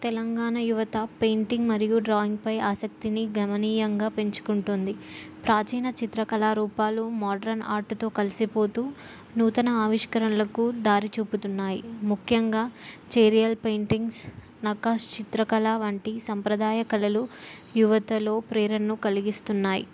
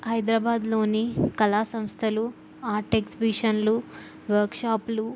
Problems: background sounds at intervals